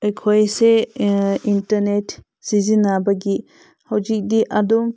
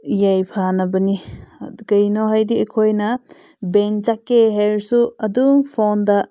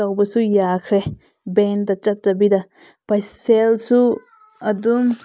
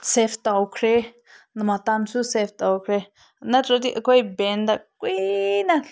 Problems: none marked